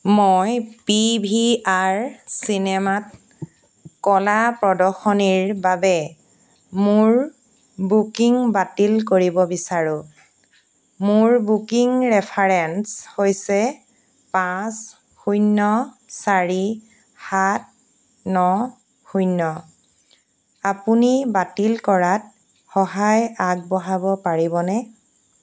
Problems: constant background noise